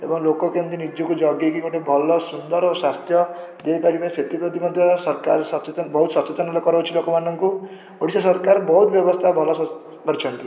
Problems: background sounds at intervals, continuous background conversations